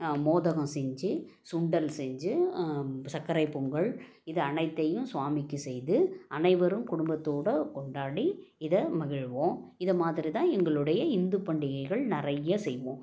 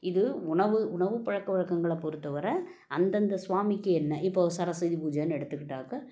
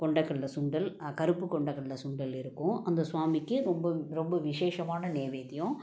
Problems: none marked